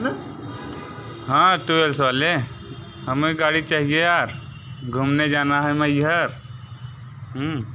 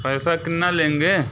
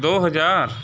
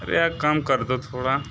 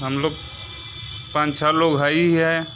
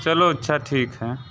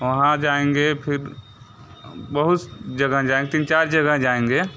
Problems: constant background noise, background conversations at intervals